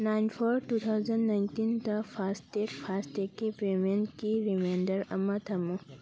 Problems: background conversations at intervals